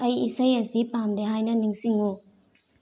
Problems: low volume